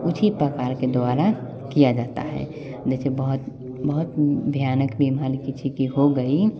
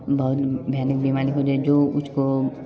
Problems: constant background noise, continuous background conversations